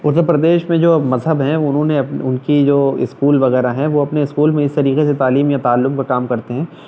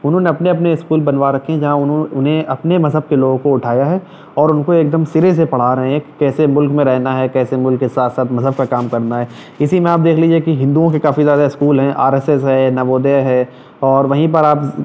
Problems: none marked